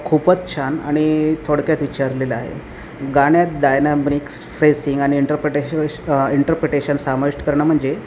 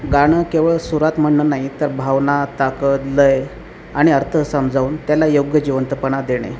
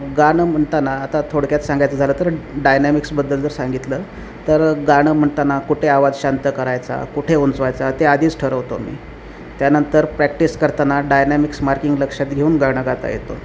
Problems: none marked